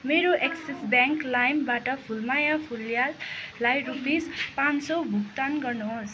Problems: continuous background conversations